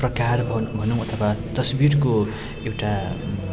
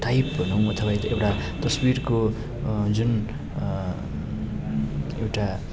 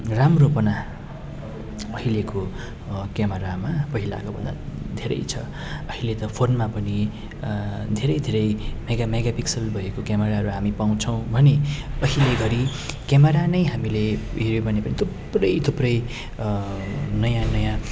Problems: constant background noise